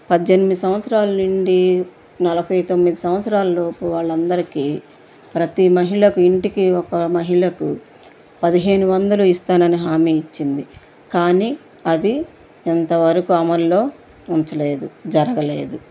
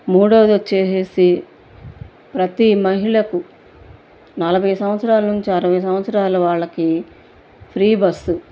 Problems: constant background noise